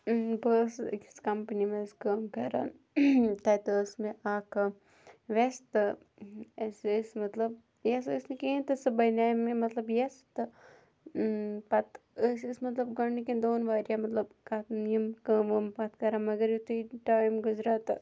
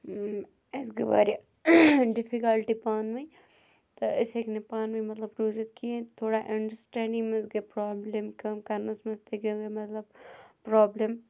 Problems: none marked